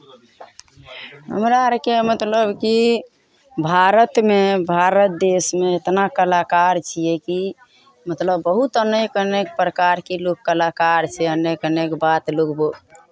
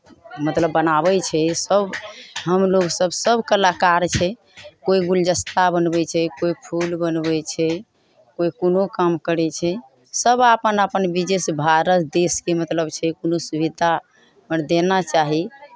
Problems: none marked